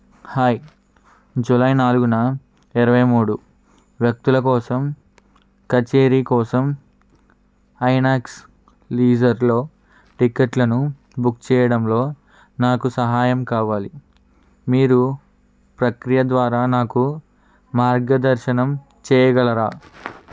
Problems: constant background noise